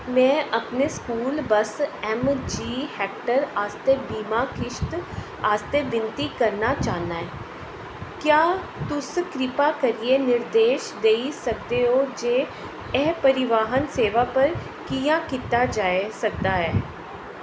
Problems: none marked